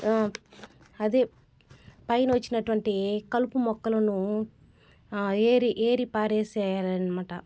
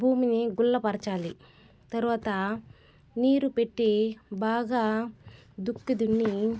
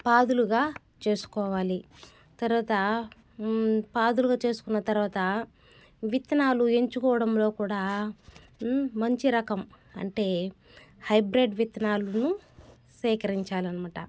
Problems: background sounds at intervals